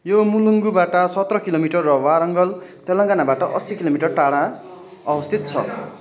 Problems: continuous background conversations